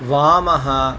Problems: constant background noise